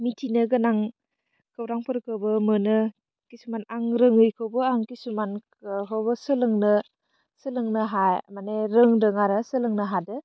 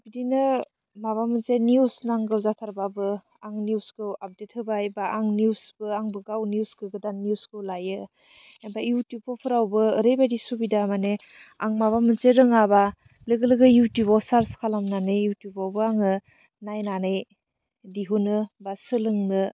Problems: low volume